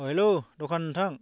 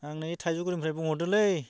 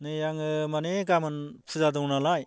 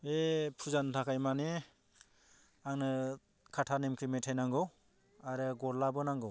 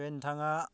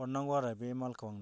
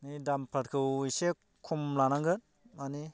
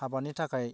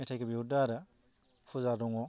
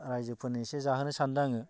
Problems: low volume